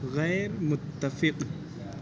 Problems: constant background noise